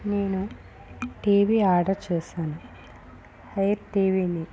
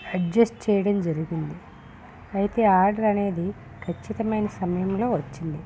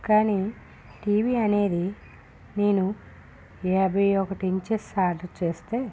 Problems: constant background noise, low volume